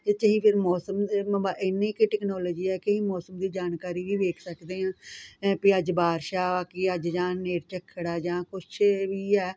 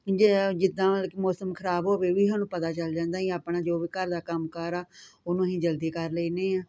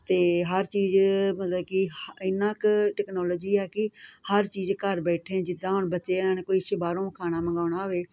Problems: none marked